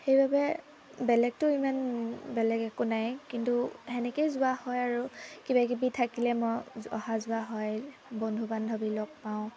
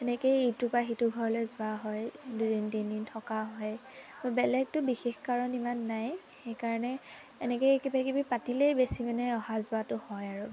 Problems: constant background noise